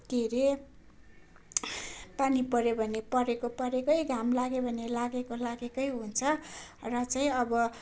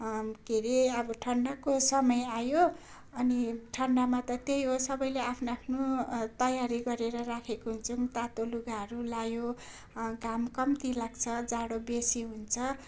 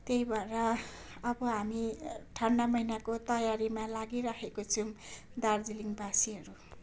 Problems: none marked